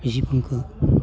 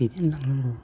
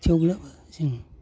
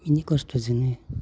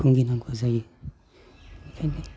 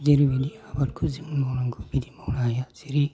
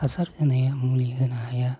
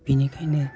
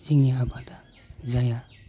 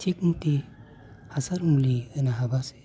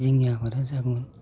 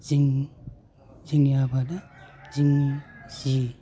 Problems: constant background noise